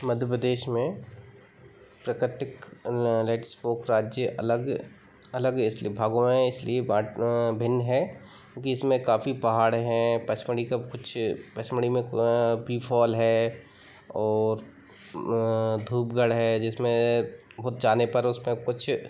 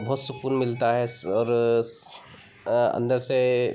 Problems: constant background noise, background conversations at intervals